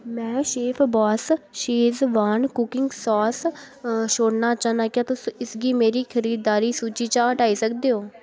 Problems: none marked